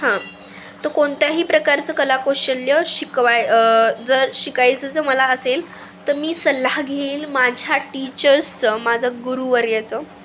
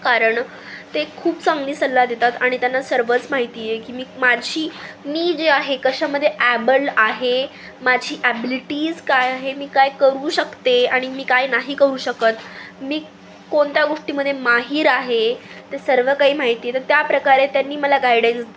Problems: constant background noise